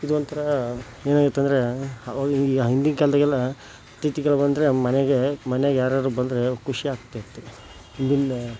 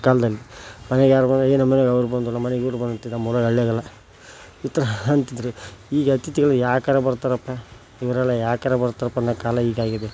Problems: background sounds at intervals